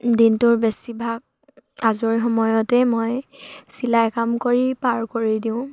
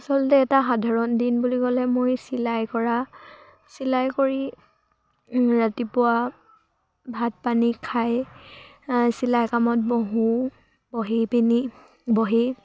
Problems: none marked